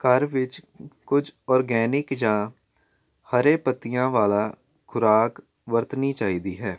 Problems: none marked